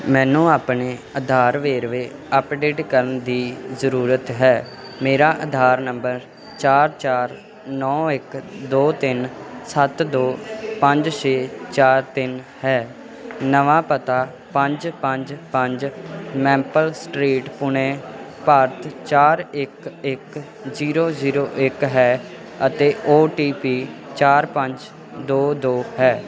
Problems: continuous background conversations